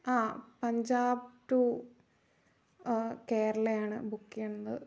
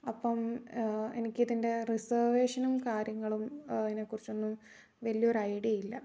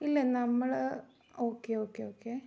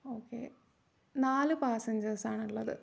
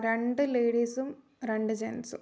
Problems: low volume